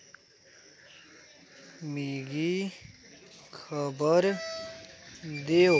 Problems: constant background noise